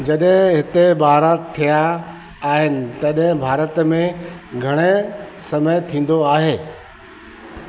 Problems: constant background noise